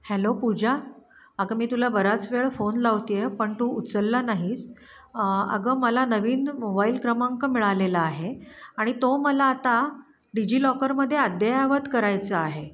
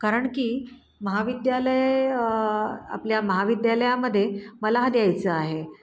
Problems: constant background noise